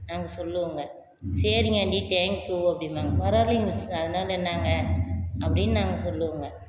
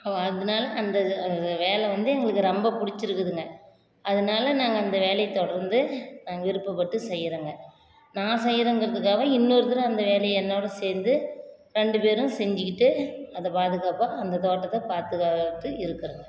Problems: constant background noise